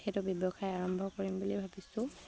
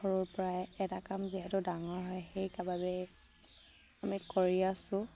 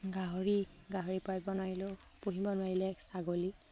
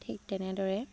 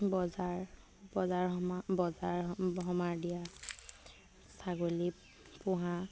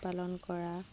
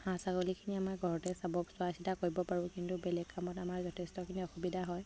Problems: none marked